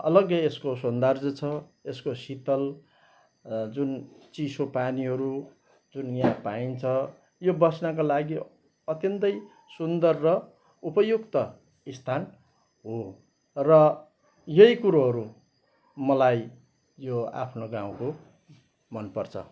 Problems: none marked